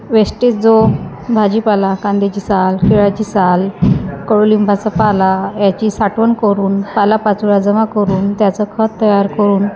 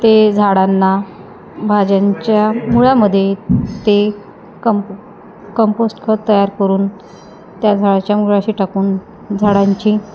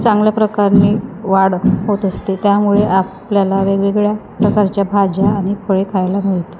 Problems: constant background noise, background conversations at intervals